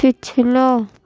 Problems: constant background noise